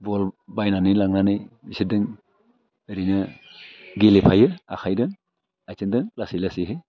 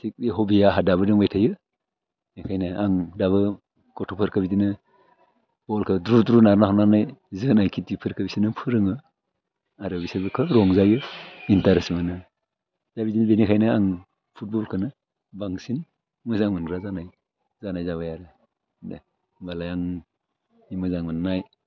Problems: none marked